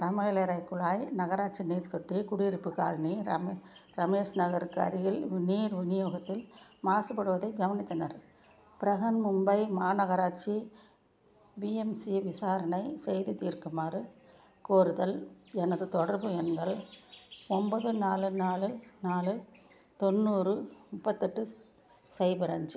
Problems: background sounds at intervals